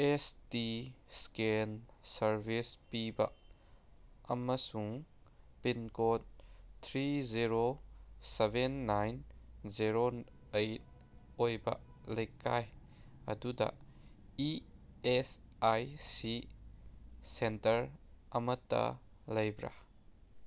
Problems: none marked